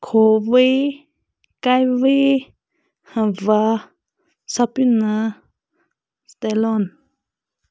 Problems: none marked